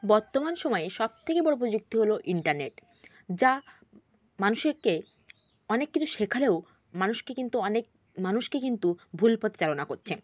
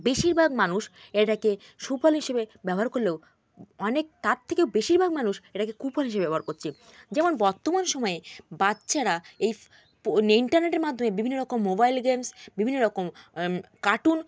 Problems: constant background noise